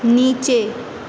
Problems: constant background noise